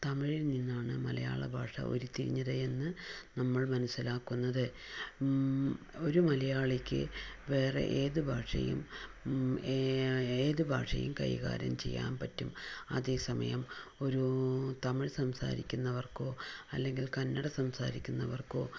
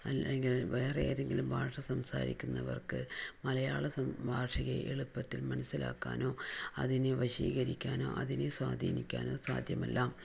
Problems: low volume